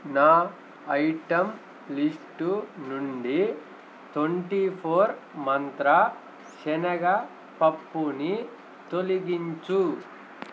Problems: none marked